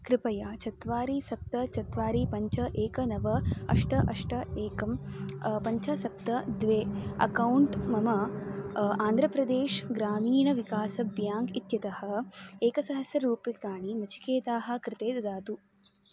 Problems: background sounds at intervals